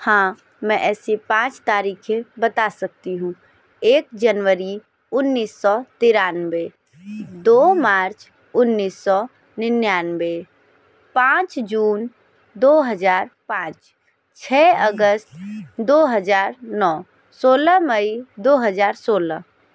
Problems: background sounds at intervals